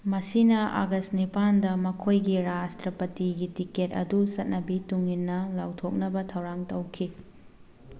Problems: none marked